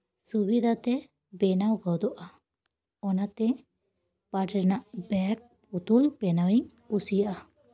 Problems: background sounds at intervals